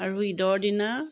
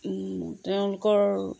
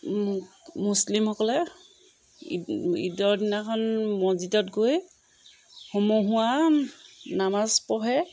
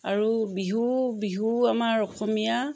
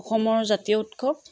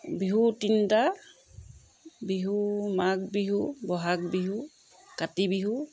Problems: background sounds at intervals